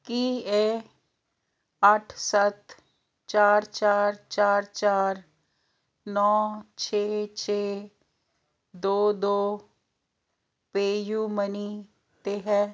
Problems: none marked